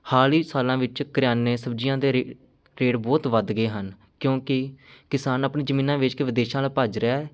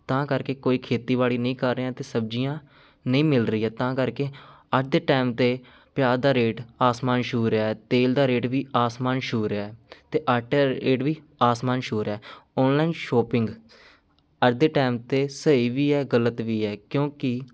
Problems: none marked